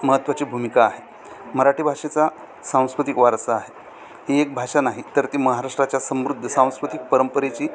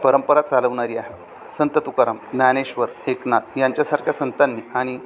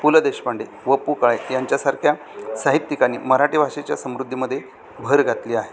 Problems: constant background noise, continuous background conversations